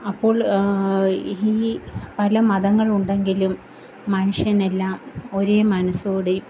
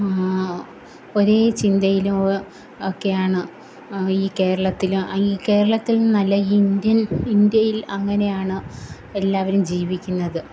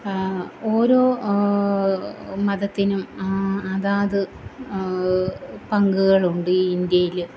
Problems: none marked